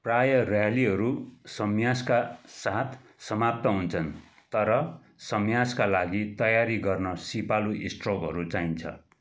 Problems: none marked